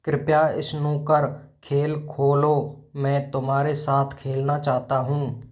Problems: background sounds at intervals